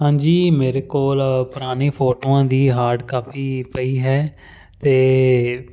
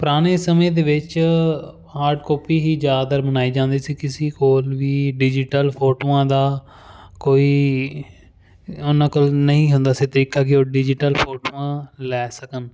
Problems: none marked